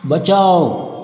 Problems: constant background noise, echo